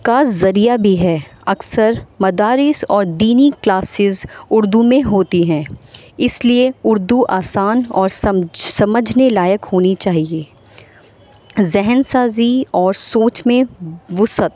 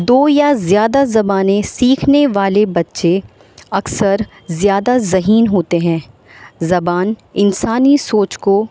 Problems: constant background noise